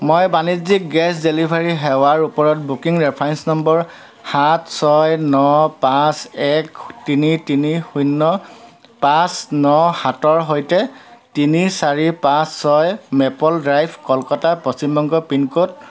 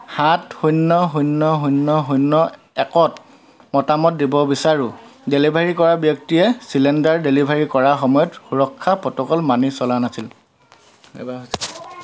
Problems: constant background noise, continuous background conversations